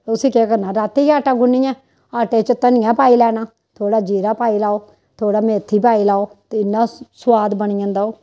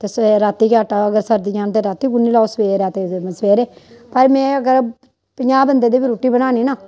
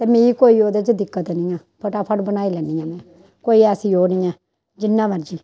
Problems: constant background noise